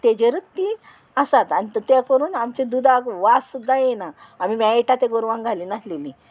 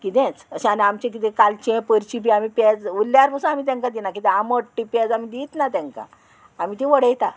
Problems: constant background noise